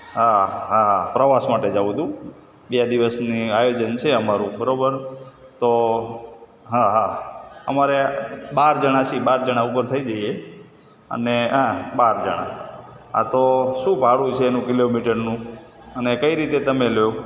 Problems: constant background noise, background conversations at intervals